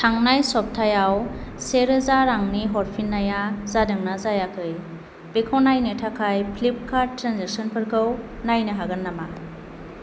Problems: constant background noise